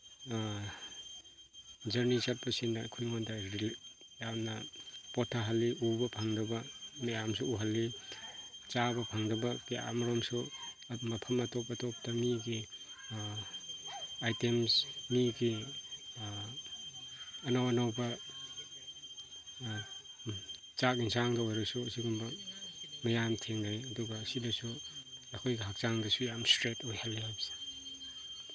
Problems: constant background noise